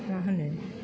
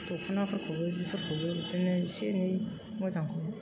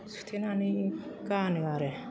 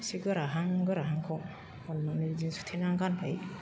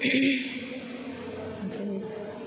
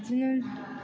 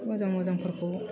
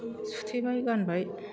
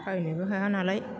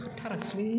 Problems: constant background noise